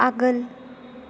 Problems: none marked